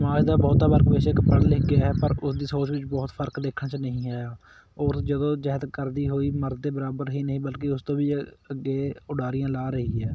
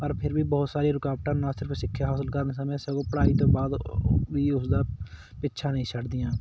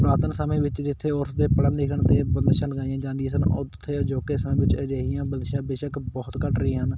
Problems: constant background noise